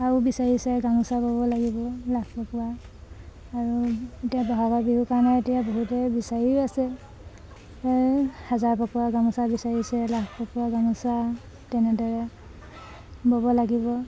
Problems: none marked